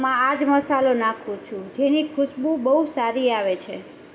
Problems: constant background noise